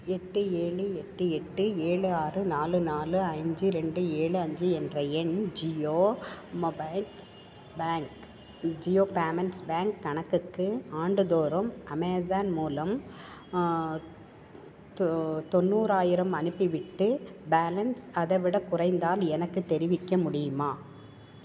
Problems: background sounds at intervals